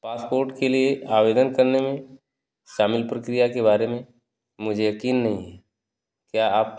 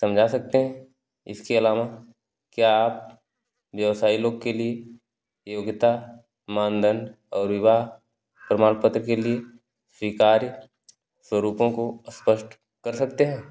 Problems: none marked